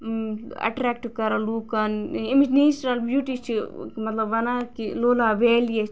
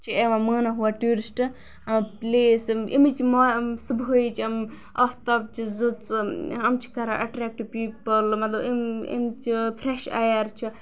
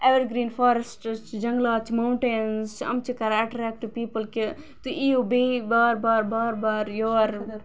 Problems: background sounds at intervals